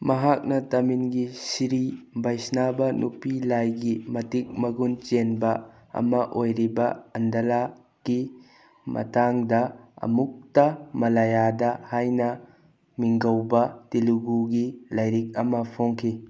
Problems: none marked